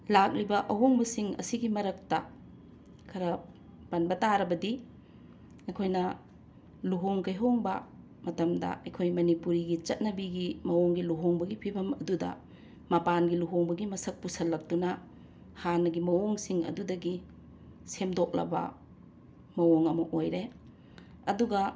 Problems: constant background noise